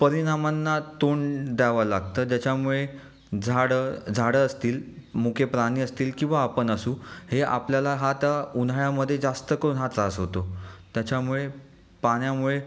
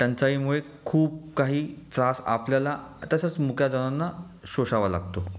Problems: none marked